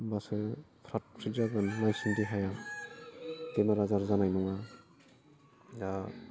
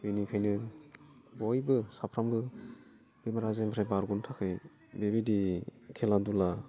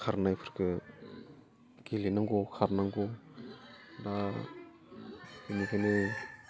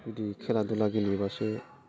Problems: low volume